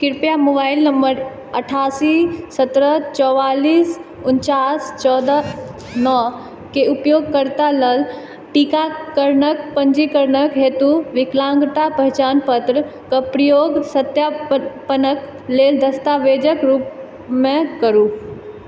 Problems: background sounds at intervals